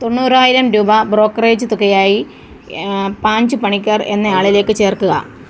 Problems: constant background noise